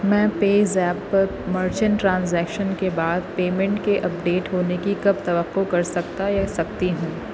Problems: constant background noise